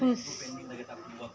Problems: low volume